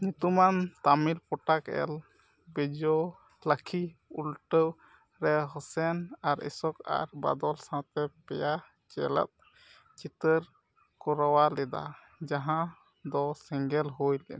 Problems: background sounds at intervals